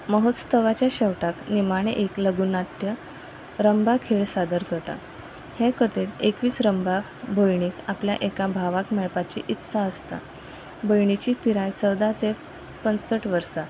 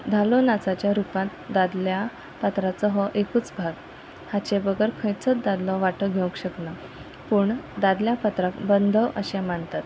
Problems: constant background noise